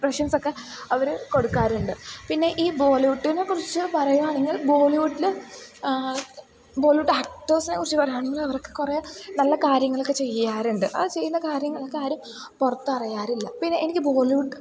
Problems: background sounds at intervals, low volume